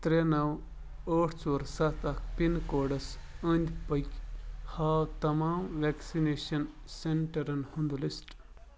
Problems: background sounds at intervals